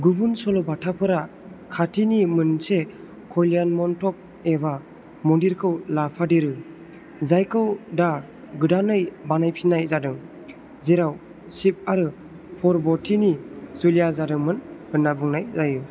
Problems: constant background noise